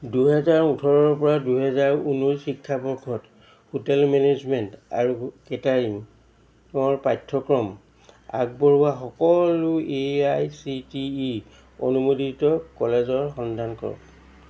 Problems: constant background noise